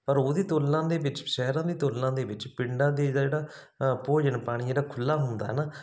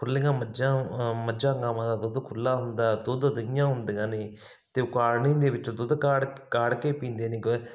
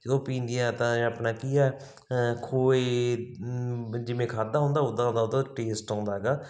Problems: background sounds at intervals